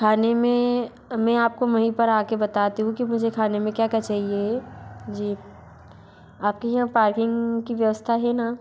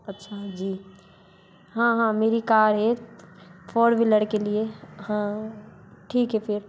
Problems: background sounds at intervals